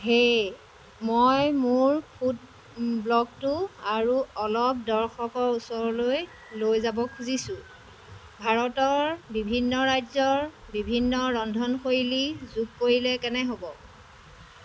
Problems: constant background noise